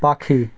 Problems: none marked